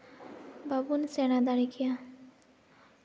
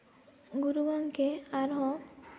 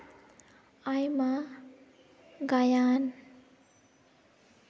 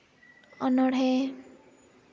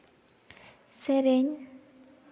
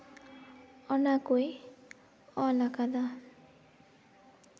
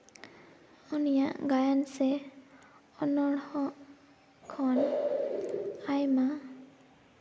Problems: constant background noise, echo